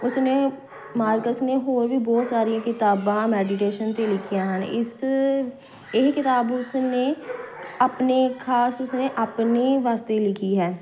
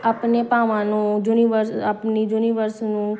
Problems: constant background noise